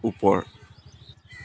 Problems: constant background noise